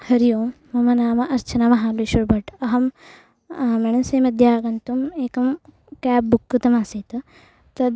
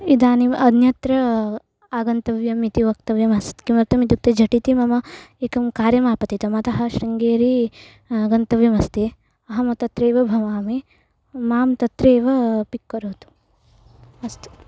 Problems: background sounds at intervals